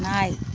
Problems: constant background noise